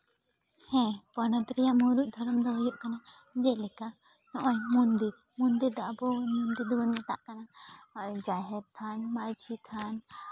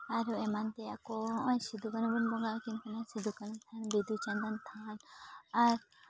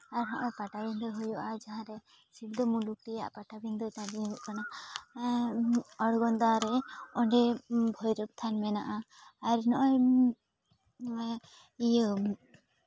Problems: background conversations at intervals